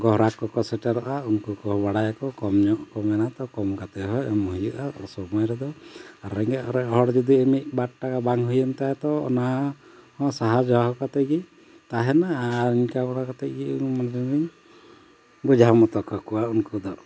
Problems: background sounds at intervals